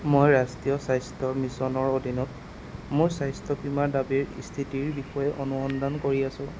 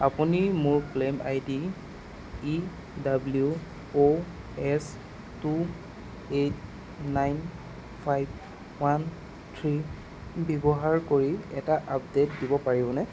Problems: constant background noise